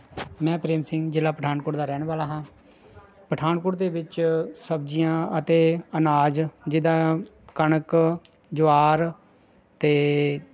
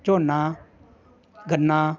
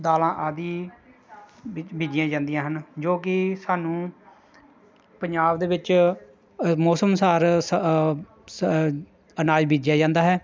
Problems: none marked